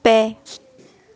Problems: background conversations at intervals